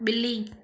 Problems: constant background noise